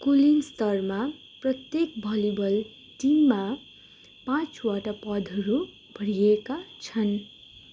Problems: constant background noise